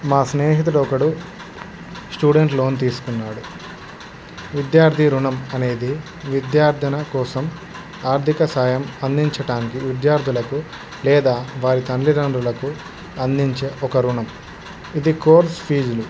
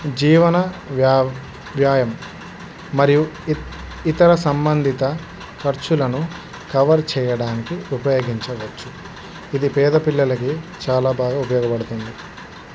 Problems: constant background noise